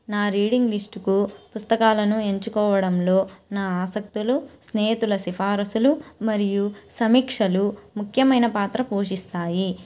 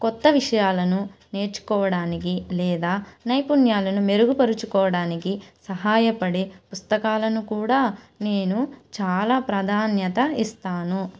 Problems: none marked